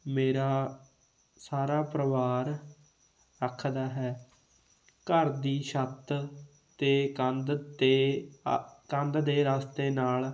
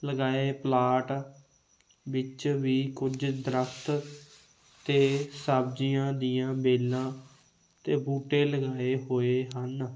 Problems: constant background noise